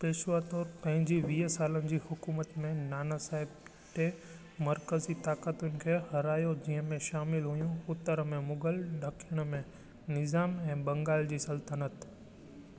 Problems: constant background noise, low volume